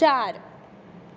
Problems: background sounds at intervals